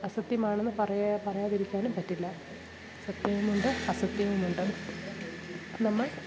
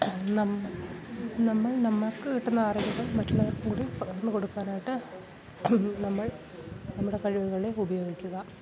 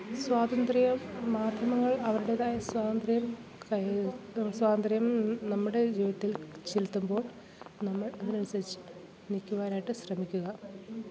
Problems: constant background noise, background conversations at intervals, low volume